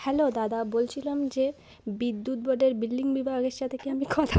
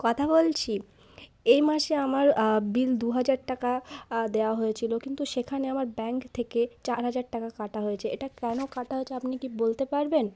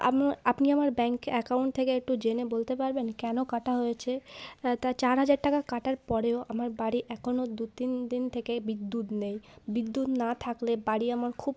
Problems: none marked